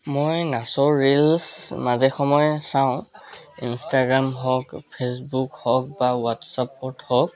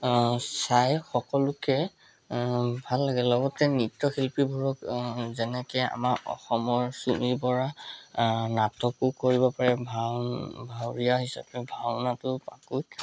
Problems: constant background noise, background conversations at intervals